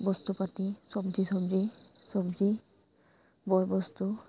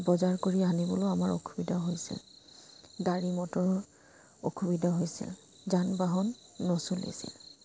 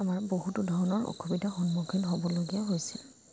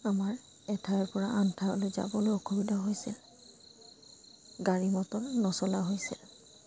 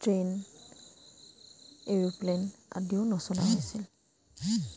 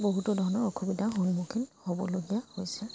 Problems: constant background noise